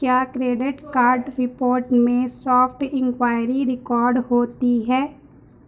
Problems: background conversations at intervals